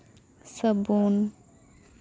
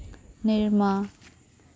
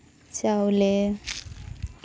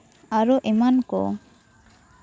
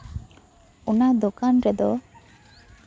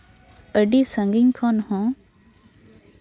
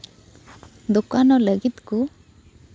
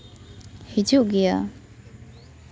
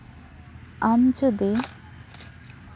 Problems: constant background noise, background conversations at intervals